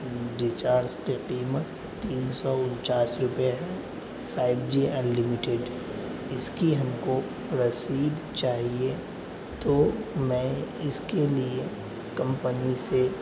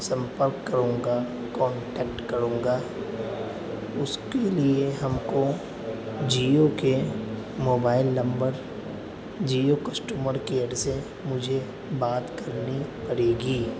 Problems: constant background noise, background conversations at intervals